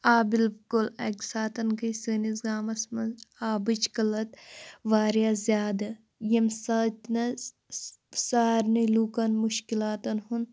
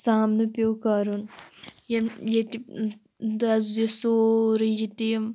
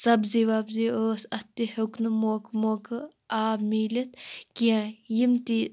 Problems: none marked